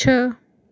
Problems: none marked